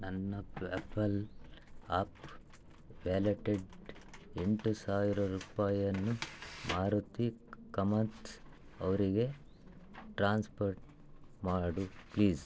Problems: low volume